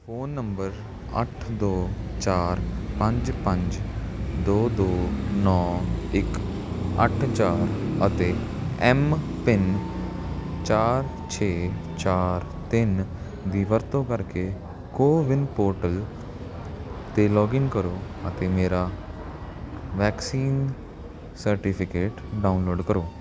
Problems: constant background noise